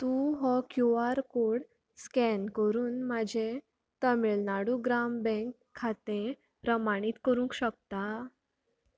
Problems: none marked